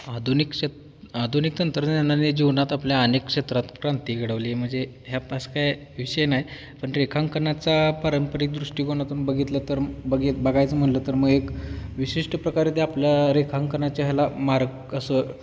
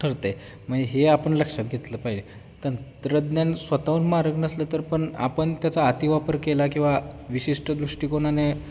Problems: constant background noise